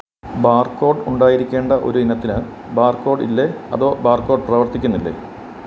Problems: constant background noise